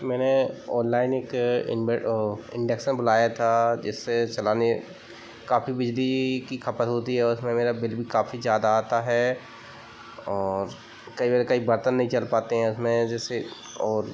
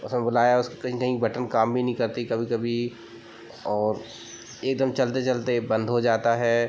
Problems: background sounds at intervals